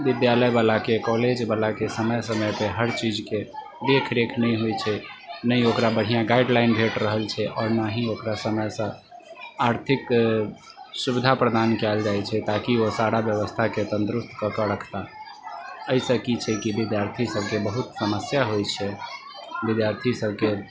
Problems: constant background noise